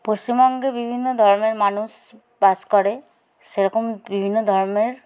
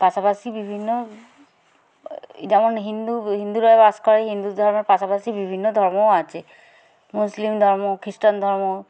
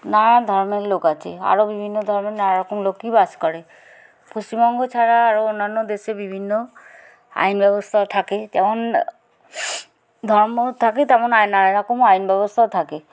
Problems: none marked